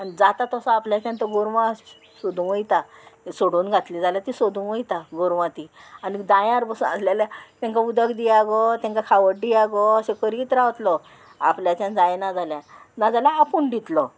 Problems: constant background noise